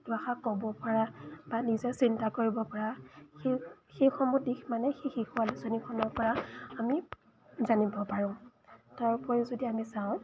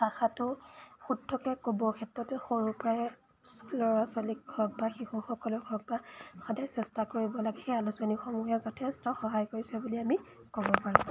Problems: background sounds at intervals